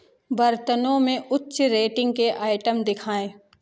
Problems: none marked